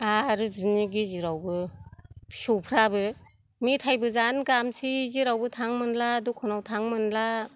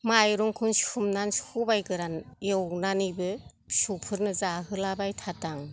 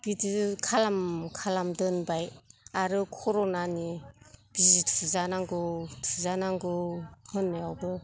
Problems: none marked